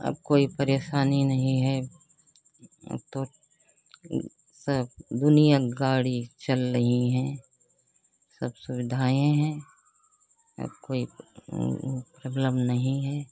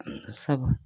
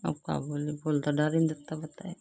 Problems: constant background noise